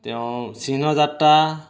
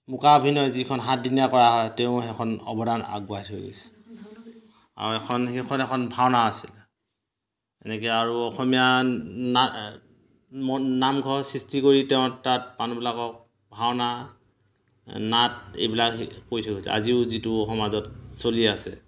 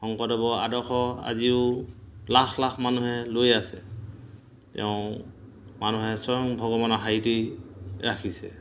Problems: none marked